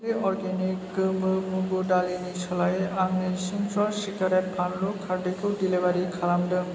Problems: low volume